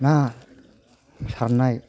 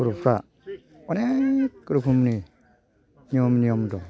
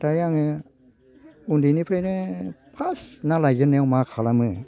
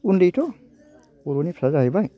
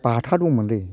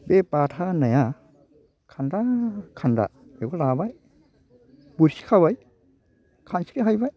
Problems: low volume